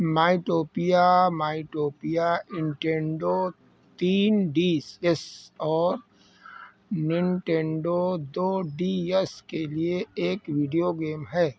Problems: constant background noise